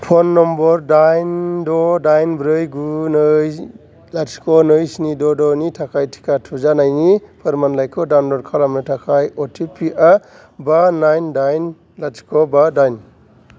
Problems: background sounds at intervals